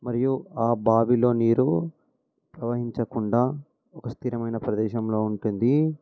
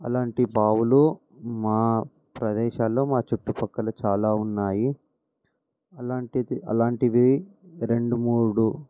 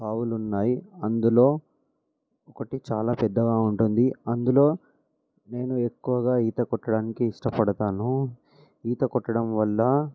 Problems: none marked